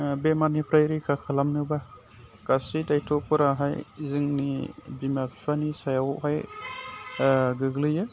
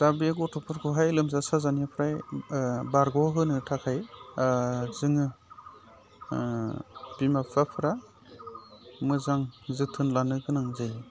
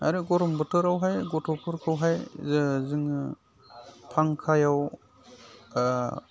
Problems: none marked